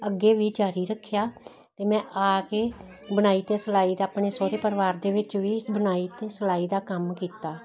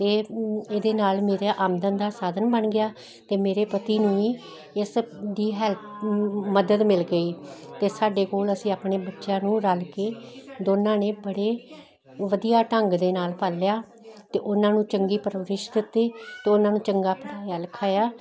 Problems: none marked